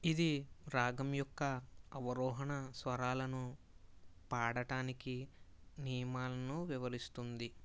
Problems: low volume